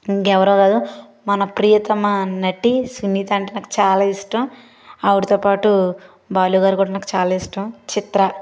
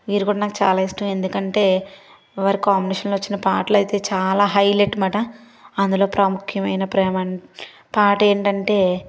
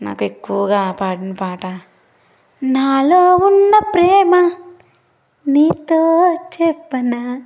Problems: background sounds at intervals